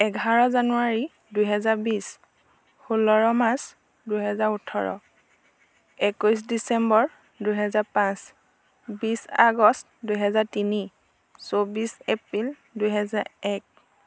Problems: constant background noise